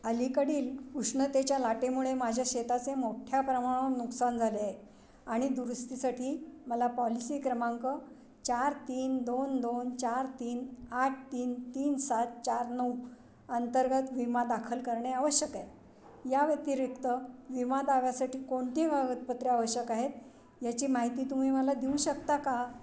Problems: constant background noise, background conversations at intervals